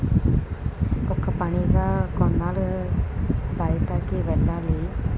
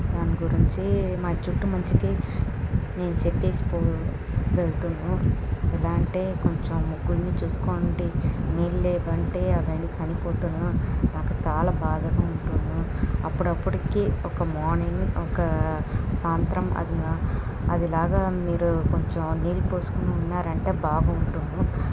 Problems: constant background noise